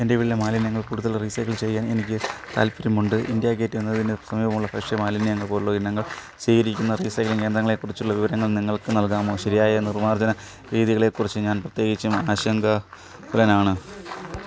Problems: background sounds at intervals